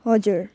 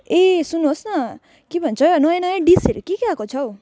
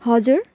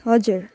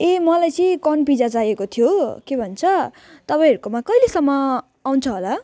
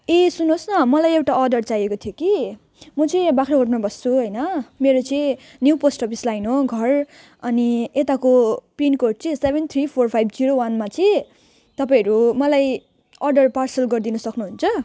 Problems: none marked